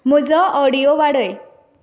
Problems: none marked